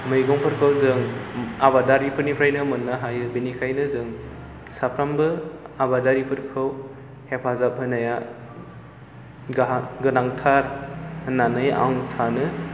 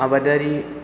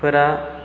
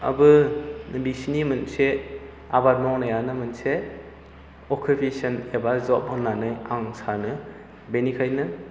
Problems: background sounds at intervals